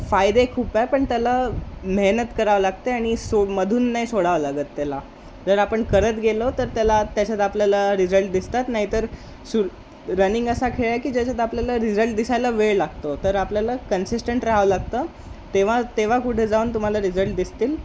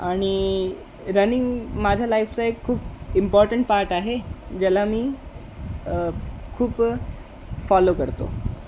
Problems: constant background noise